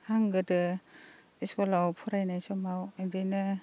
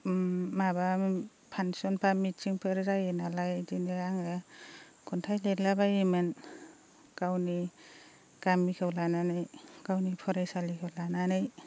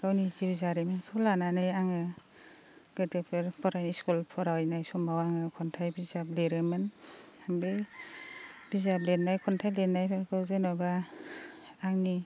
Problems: constant background noise